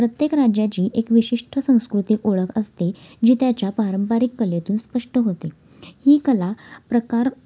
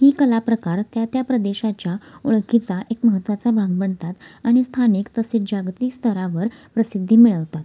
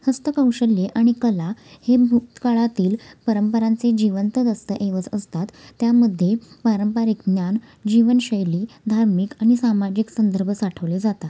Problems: constant background noise